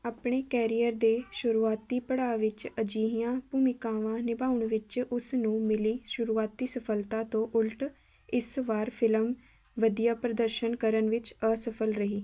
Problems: constant background noise